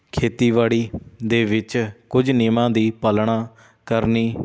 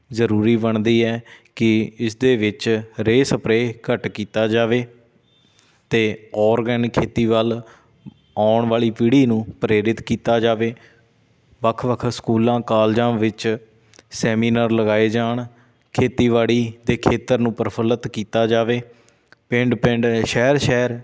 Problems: background sounds at intervals